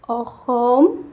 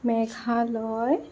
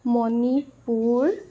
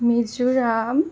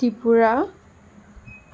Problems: background sounds at intervals, background conversations at intervals